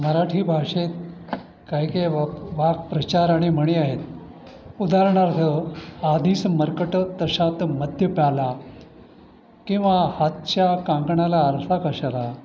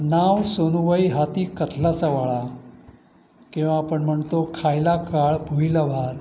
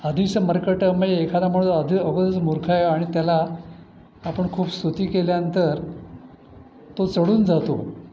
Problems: constant background noise, continuous background conversations